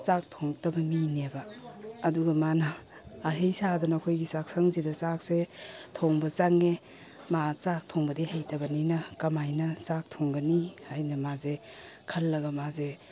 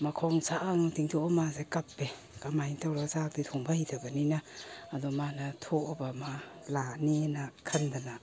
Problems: none marked